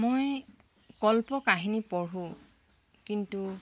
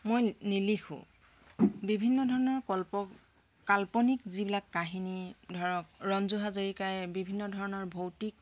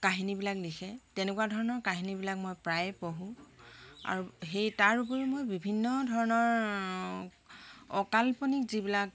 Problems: none marked